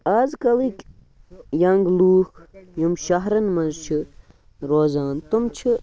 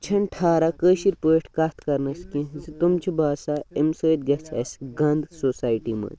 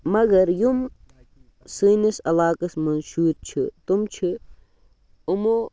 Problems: background sounds at intervals, continuous background conversations